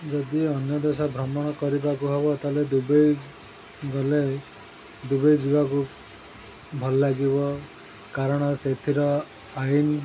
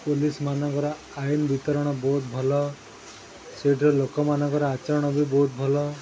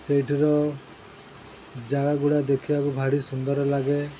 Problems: constant background noise